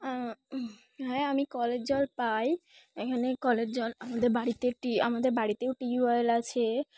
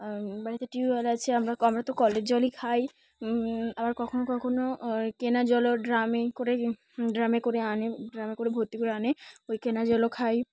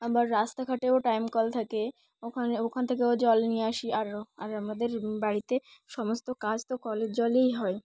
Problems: background sounds at intervals, background conversations at intervals